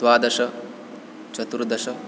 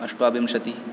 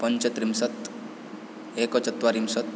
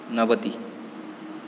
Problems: none marked